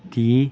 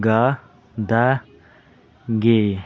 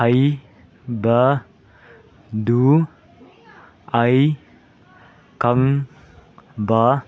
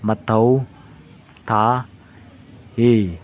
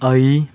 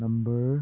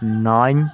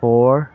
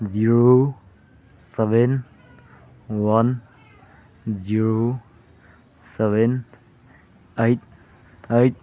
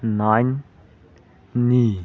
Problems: background sounds at intervals, background conversations at intervals